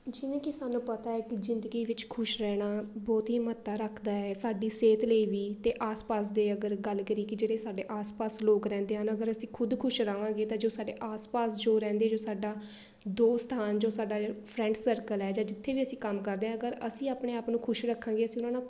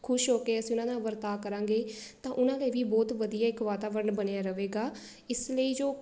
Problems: none marked